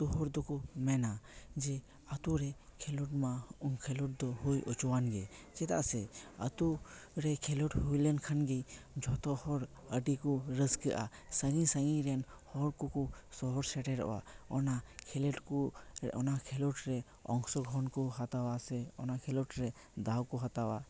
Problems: none marked